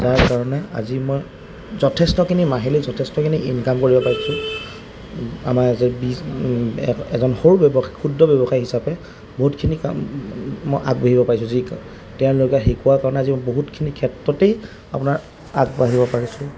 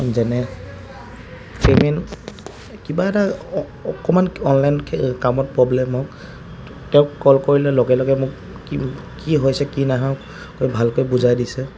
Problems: constant background noise